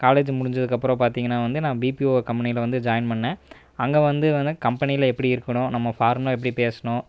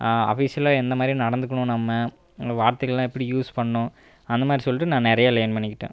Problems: none marked